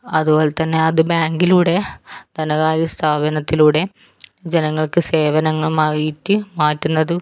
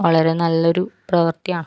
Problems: none marked